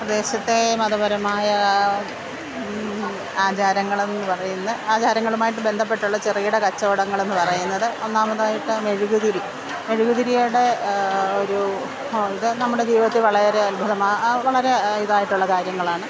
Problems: constant background noise